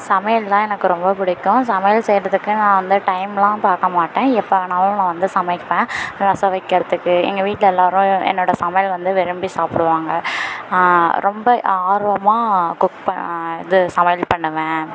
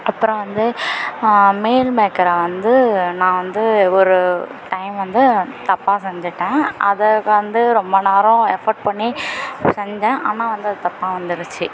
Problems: constant background noise